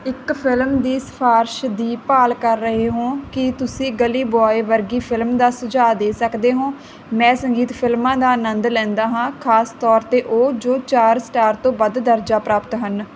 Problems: none marked